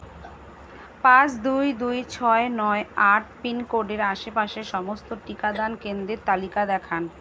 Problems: constant background noise